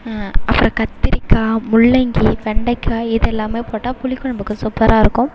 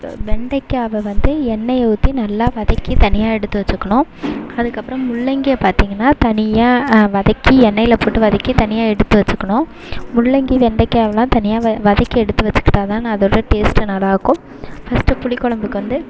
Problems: constant background noise, background conversations at intervals